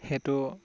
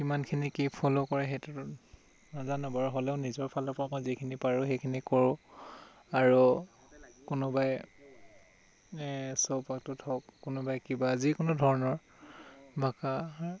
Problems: constant background noise